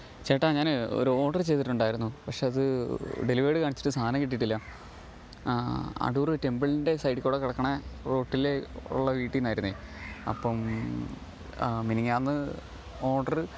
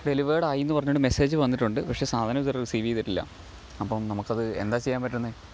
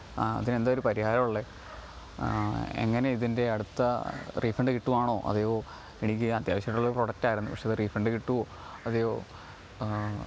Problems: low volume